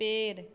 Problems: none marked